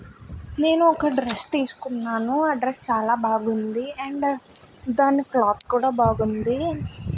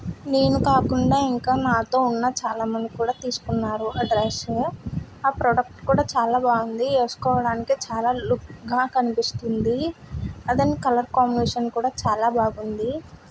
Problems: background sounds at intervals